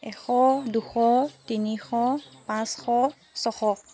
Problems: none marked